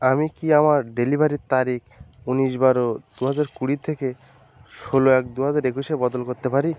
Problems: constant background noise